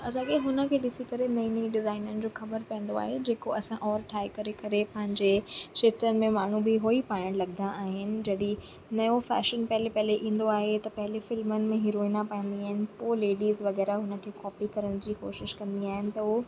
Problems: constant background noise